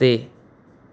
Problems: none marked